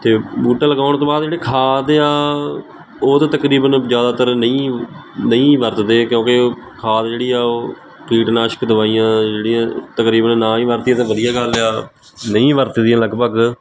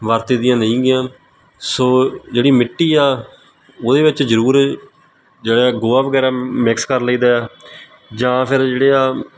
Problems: constant background noise